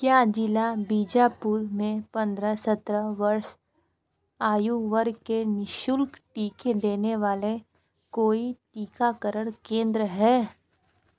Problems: constant background noise, background conversations at intervals